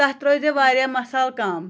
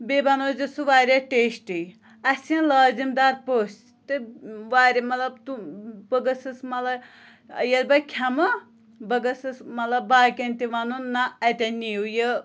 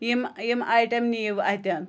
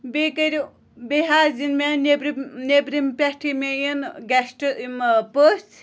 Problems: background conversations at intervals